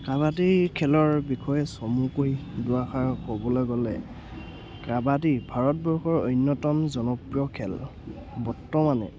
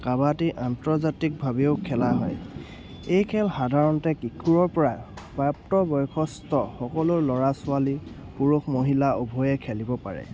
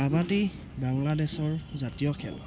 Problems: constant background noise